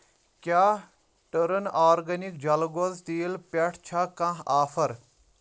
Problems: none marked